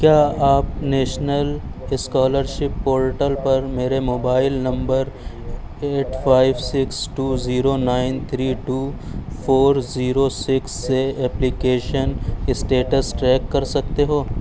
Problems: none marked